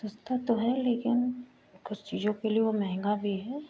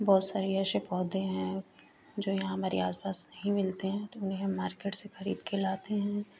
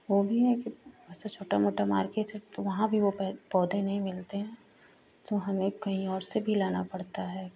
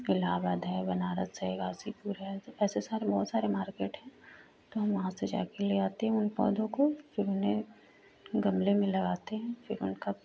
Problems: constant background noise